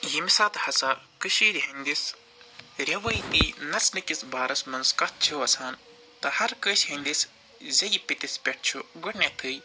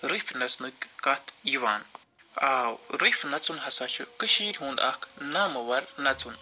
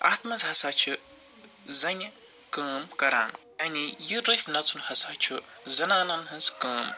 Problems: constant background noise